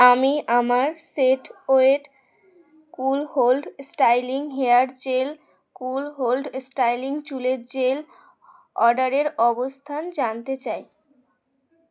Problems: constant background noise, background conversations at intervals